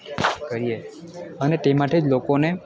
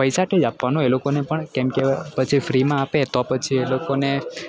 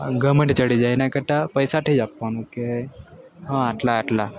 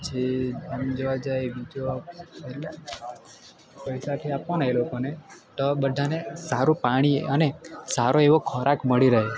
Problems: constant background noise